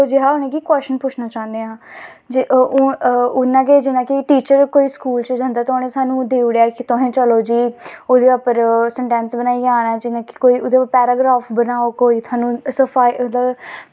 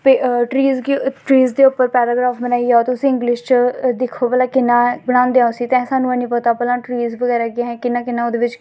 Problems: none marked